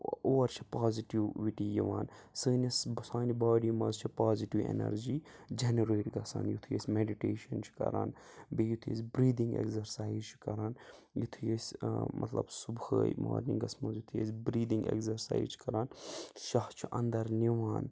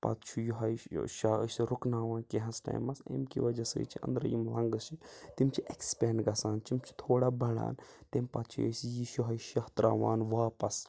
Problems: background sounds at intervals